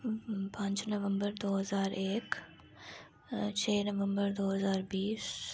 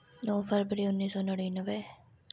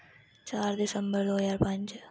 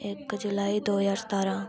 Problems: none marked